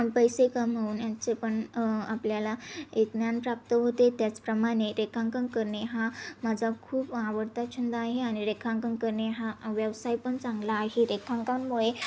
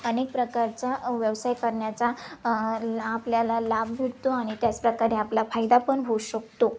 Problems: background sounds at intervals, background conversations at intervals